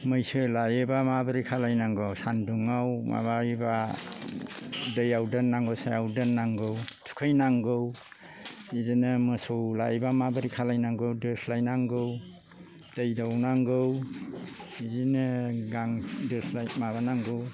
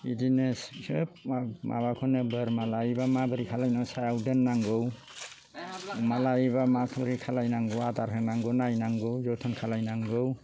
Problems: low volume